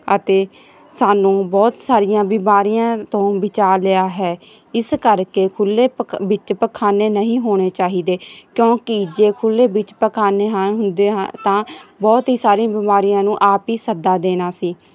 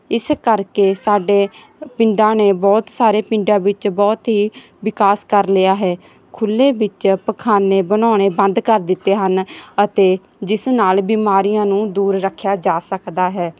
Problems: background sounds at intervals